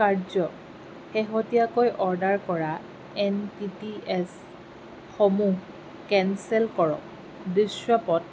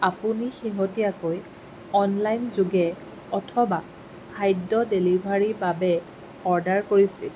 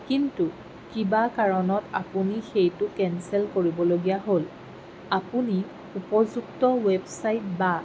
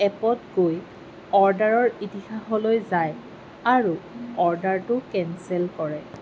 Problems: constant background noise